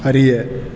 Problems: constant background noise